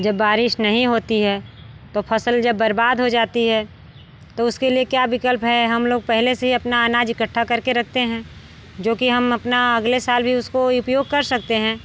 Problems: background sounds at intervals